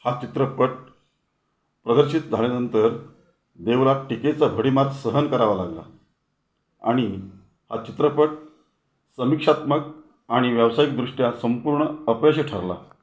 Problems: background sounds at intervals